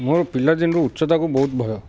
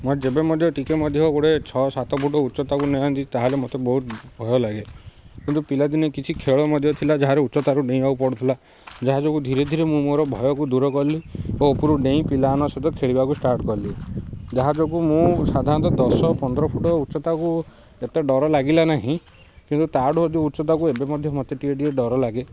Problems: constant background noise